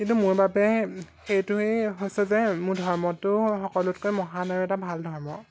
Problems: background sounds at intervals